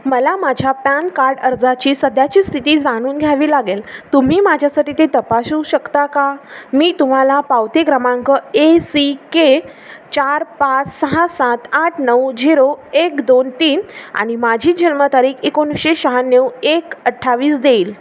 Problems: constant background noise